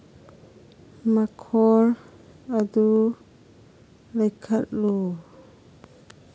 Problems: none marked